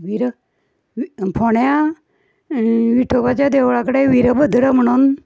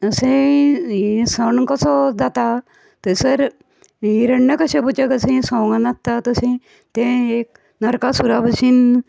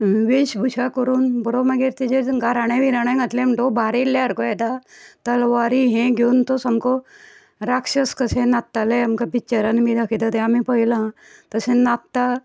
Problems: background sounds at intervals